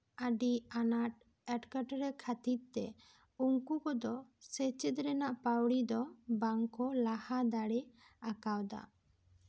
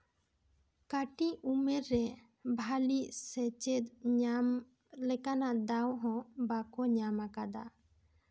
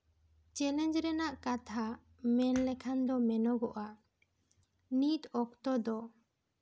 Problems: none marked